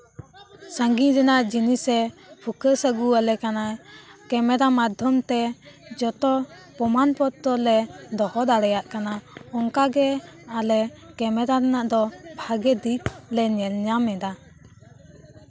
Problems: background sounds at intervals, background conversations at intervals